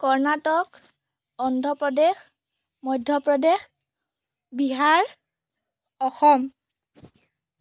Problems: none marked